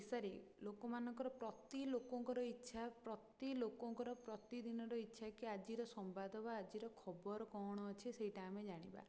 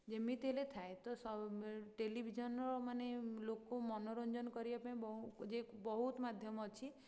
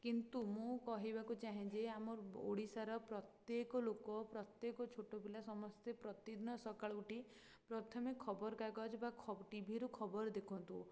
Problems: low volume